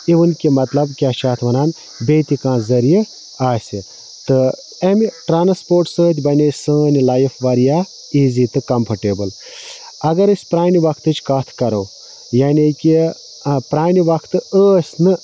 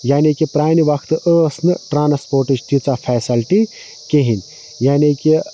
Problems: constant background noise